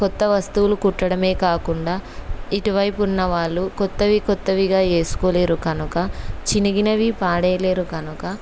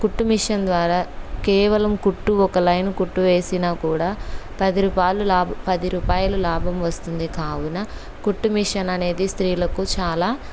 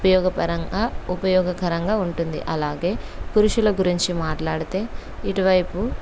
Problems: background sounds at intervals